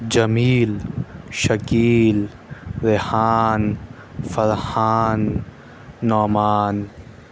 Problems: constant background noise